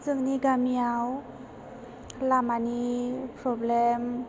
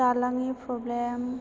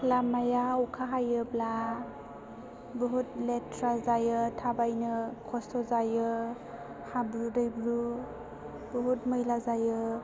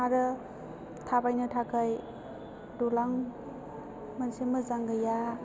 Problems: background sounds at intervals